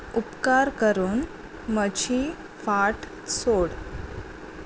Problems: none marked